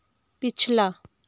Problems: none marked